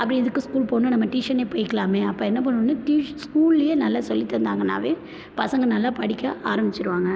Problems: constant background noise